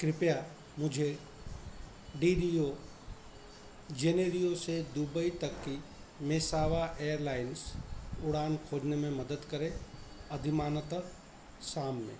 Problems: none marked